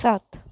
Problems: low volume